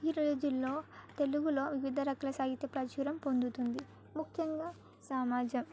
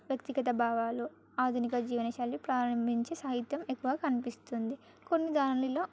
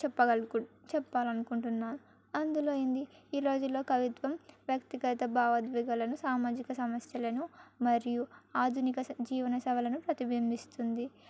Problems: background sounds at intervals